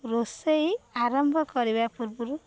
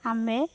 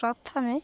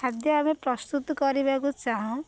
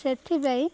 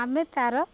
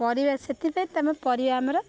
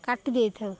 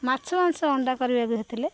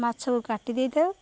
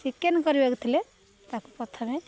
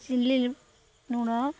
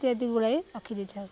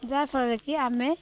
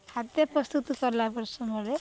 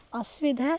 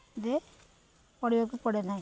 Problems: none marked